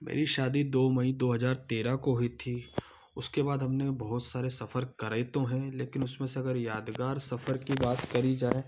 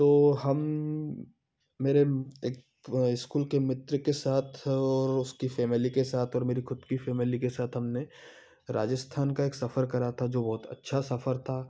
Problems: none marked